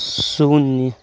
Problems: constant background noise